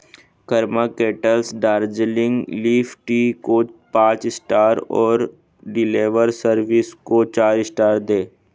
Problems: none marked